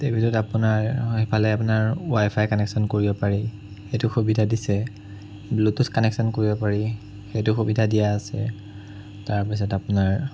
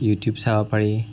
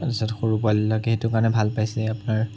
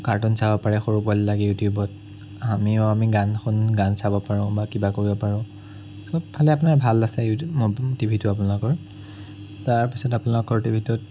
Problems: none marked